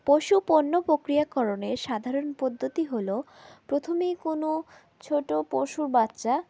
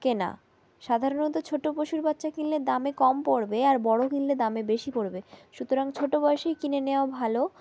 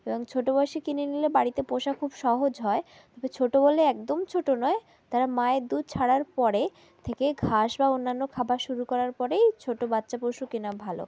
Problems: background sounds at intervals